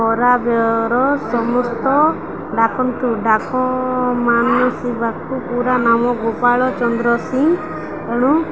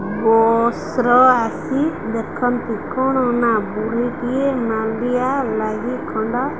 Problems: none marked